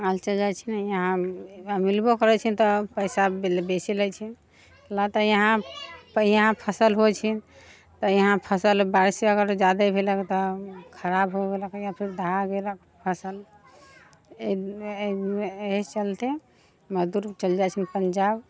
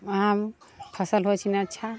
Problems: background sounds at intervals